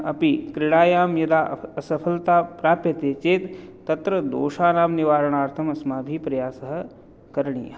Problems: none marked